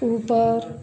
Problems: none marked